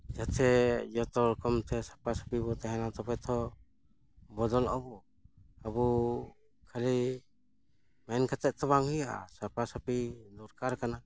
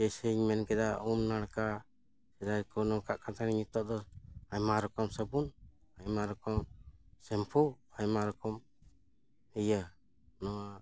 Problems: none marked